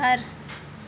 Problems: constant background noise